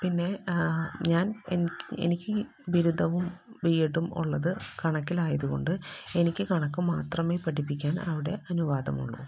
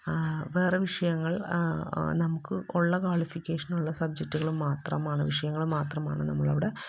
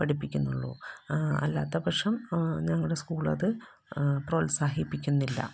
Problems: constant background noise, low volume